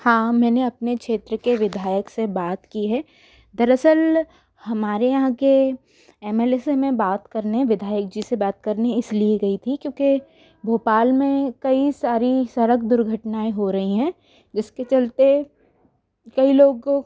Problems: background sounds at intervals